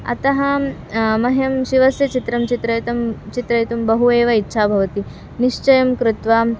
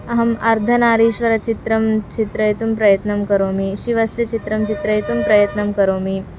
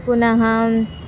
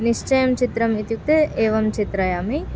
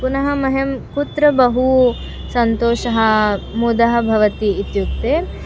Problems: constant background noise, continuous background conversations